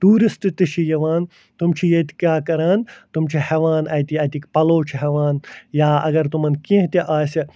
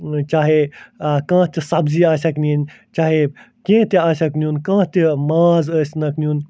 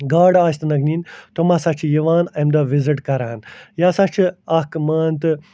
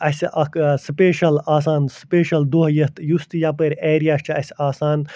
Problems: none marked